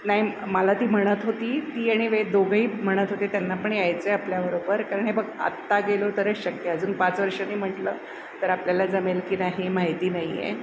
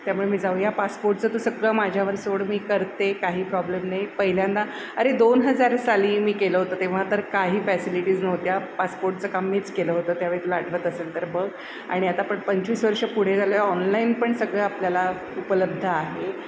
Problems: constant background noise